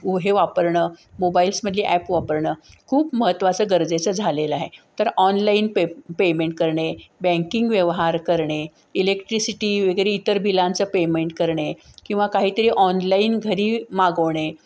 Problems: background sounds at intervals